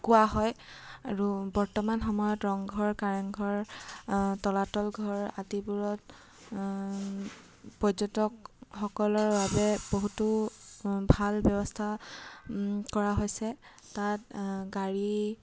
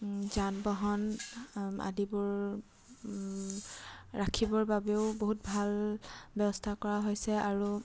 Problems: constant background noise